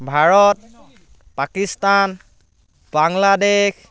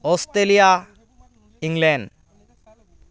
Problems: background conversations at intervals